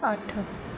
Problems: background sounds at intervals